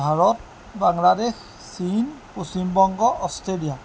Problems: constant background noise